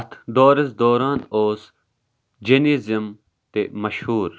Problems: background sounds at intervals